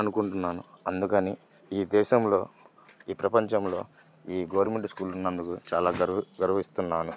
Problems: none marked